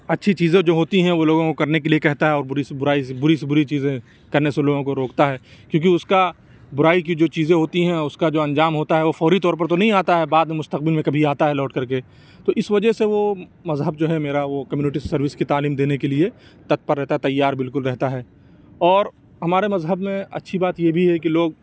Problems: constant background noise